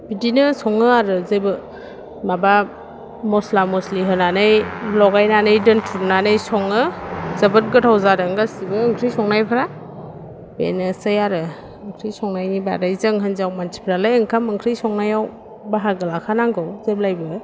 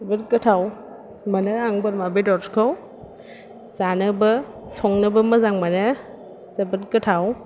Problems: low volume